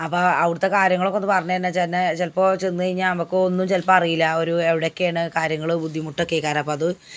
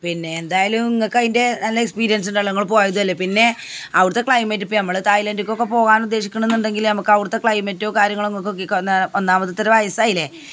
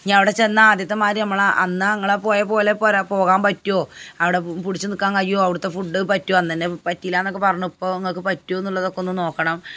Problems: background sounds at intervals